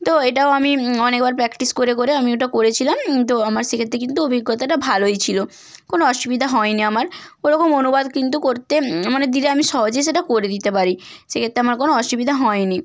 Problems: constant background noise